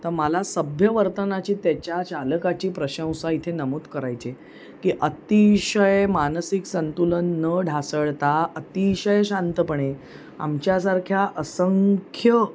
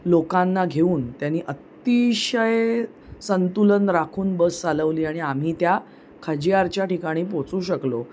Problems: constant background noise